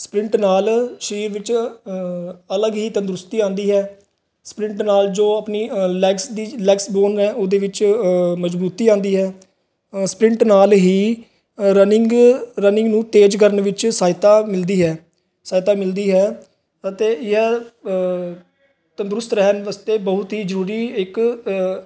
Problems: background sounds at intervals